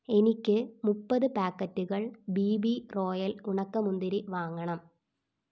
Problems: none marked